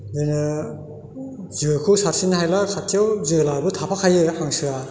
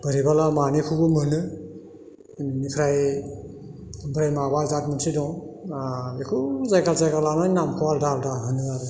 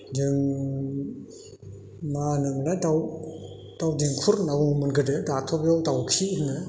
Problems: constant background noise